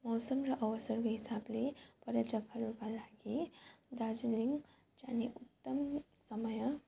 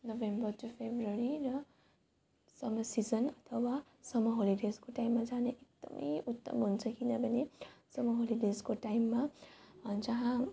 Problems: none marked